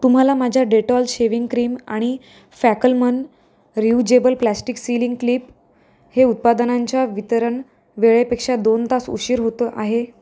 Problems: background sounds at intervals